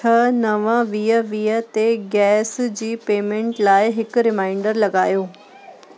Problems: constant background noise, echo